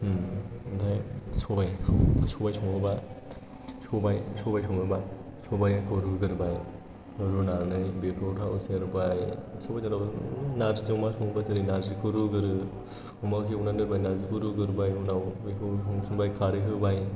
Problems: background sounds at intervals